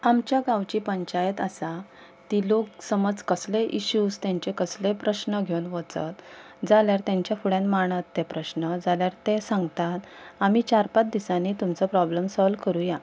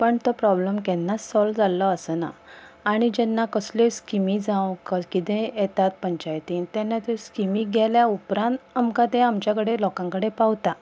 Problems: background sounds at intervals